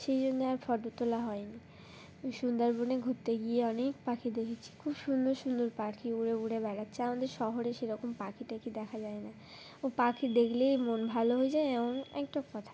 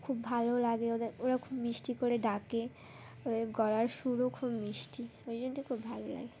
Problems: background sounds at intervals